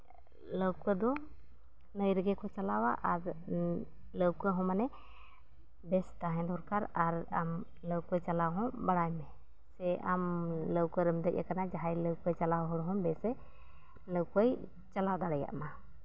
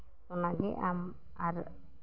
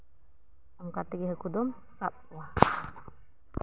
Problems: background sounds at intervals, low volume